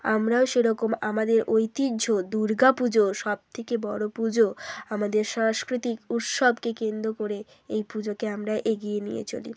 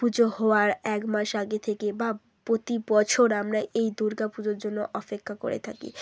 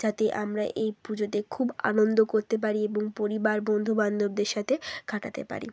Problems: none marked